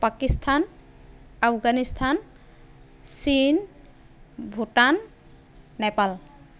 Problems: none marked